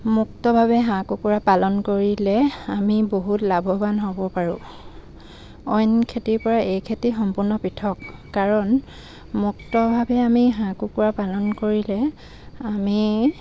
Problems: none marked